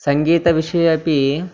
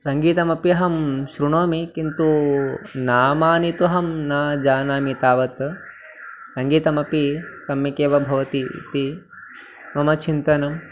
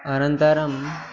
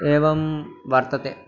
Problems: continuous background conversations